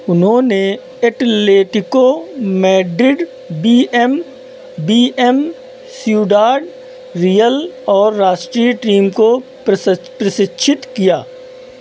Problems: none marked